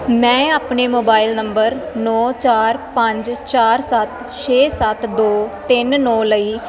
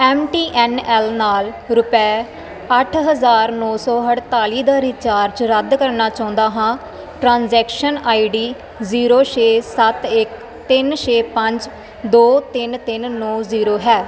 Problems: constant background noise